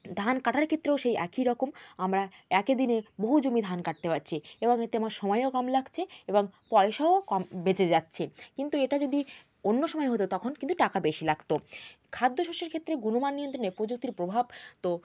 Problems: constant background noise